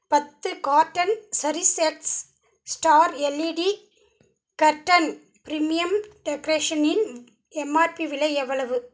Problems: none marked